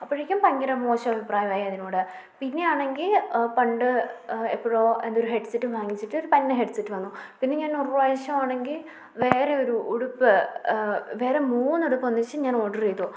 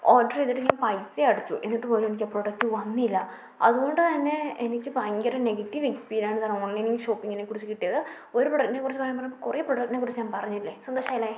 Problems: low volume